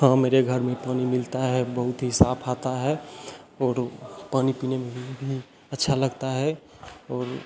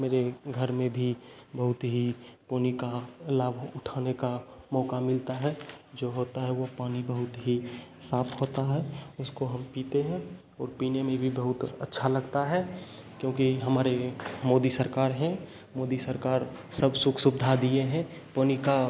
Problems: constant background noise, echo